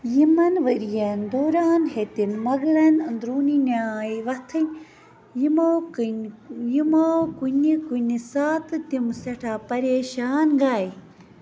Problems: constant background noise, background conversations at intervals